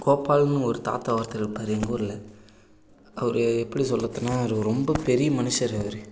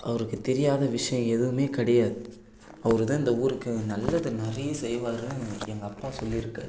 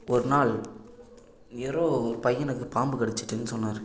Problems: low volume